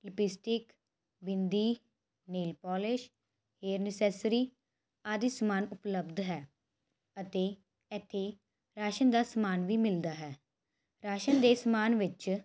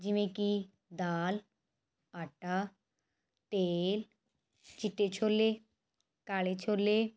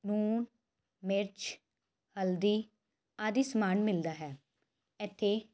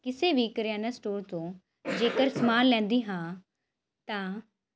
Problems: constant background noise